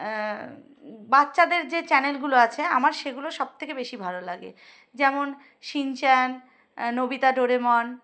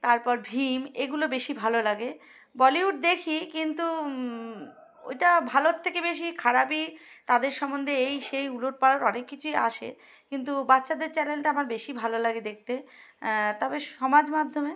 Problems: background sounds at intervals